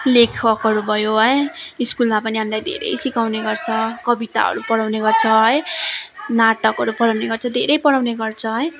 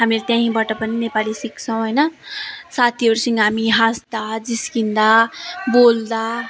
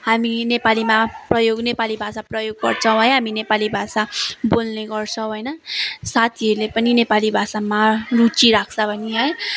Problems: constant background noise, continuous background conversations